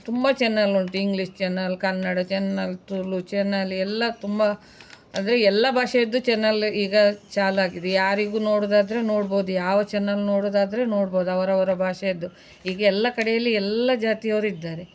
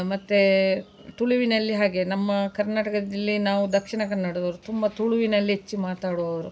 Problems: none marked